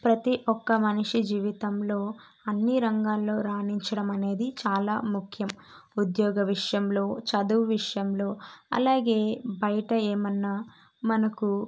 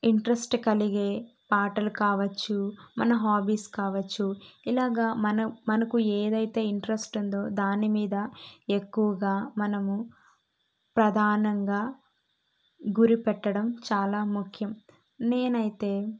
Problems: none marked